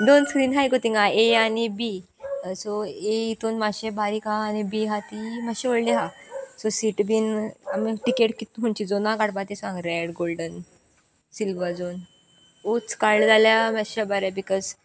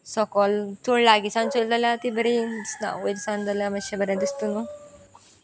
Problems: background sounds at intervals